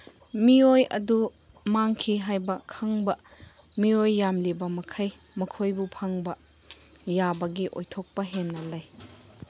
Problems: background sounds at intervals